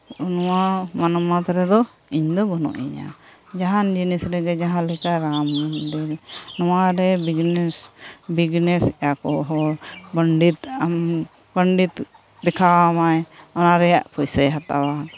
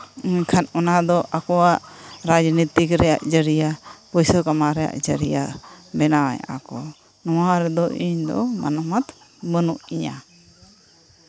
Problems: none marked